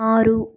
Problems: none marked